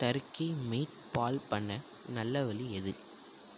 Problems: low volume